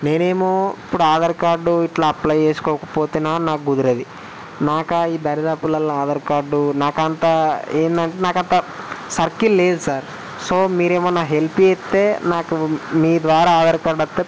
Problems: constant background noise